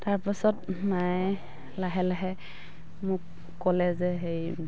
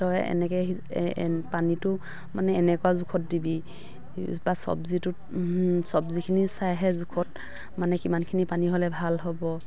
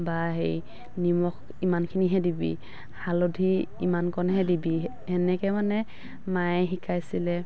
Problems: background sounds at intervals